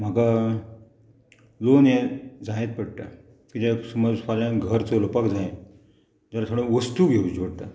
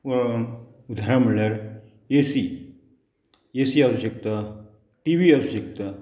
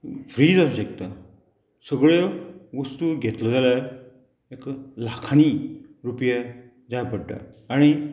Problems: none marked